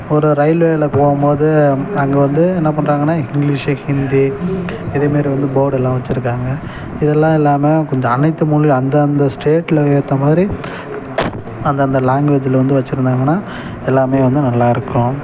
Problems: background sounds at intervals